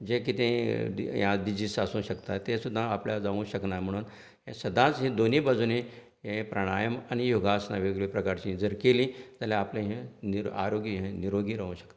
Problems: none marked